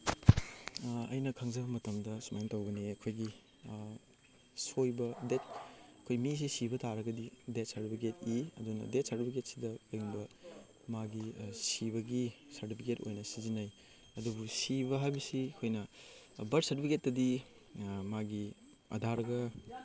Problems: background sounds at intervals